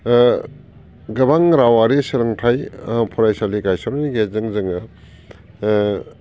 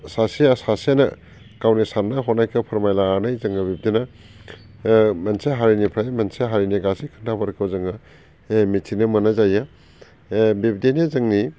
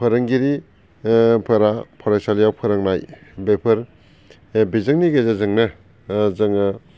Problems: constant background noise